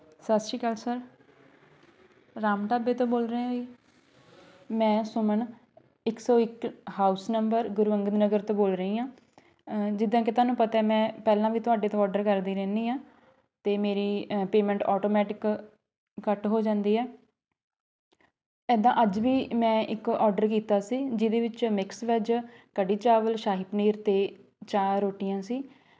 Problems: background conversations at intervals